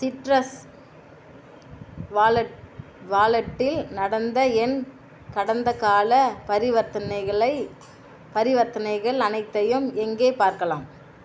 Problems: constant background noise